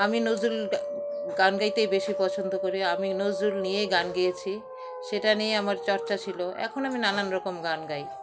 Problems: none marked